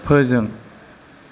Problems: constant background noise